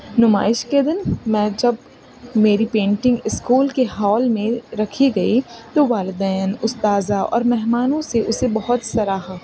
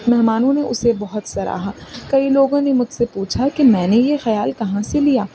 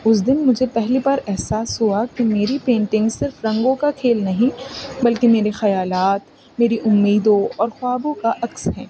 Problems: constant background noise